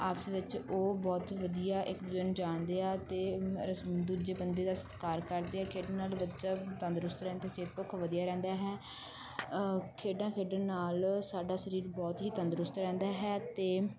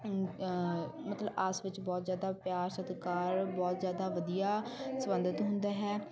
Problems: constant background noise